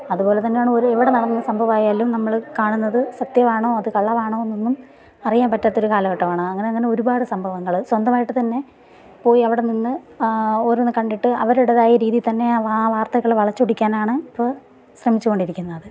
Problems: none marked